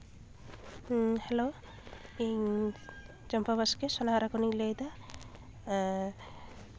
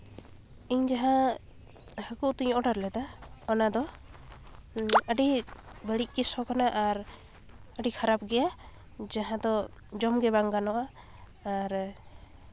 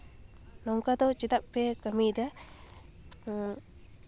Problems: constant background noise, continuous background conversations